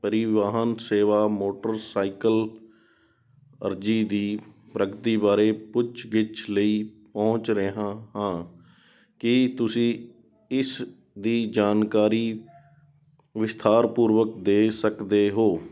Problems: none marked